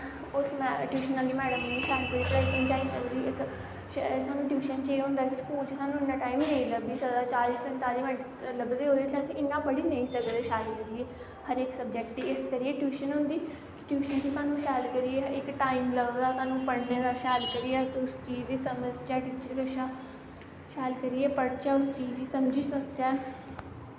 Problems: constant background noise